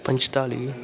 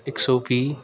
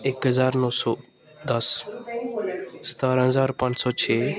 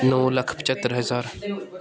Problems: constant background noise